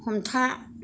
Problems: low volume